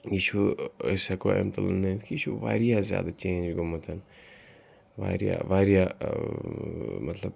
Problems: background sounds at intervals, background conversations at intervals